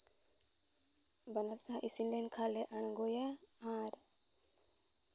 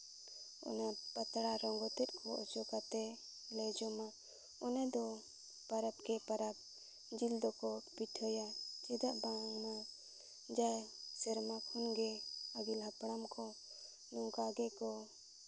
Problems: none marked